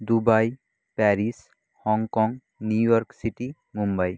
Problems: none marked